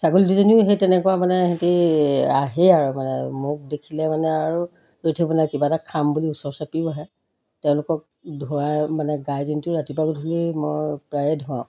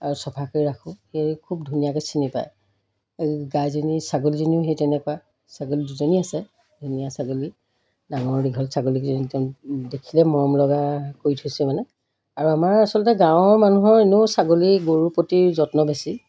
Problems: background sounds at intervals